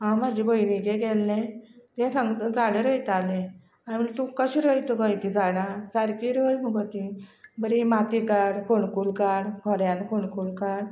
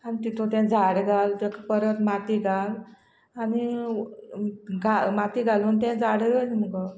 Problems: constant background noise